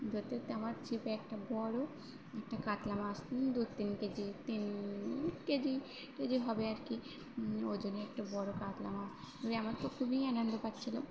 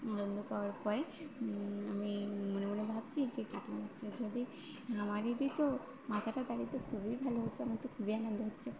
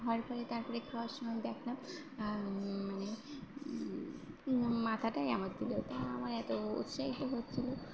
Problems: constant background noise, background conversations at intervals